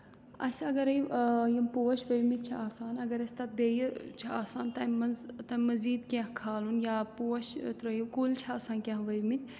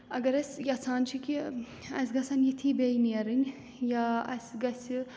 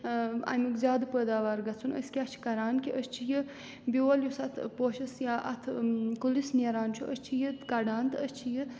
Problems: background sounds at intervals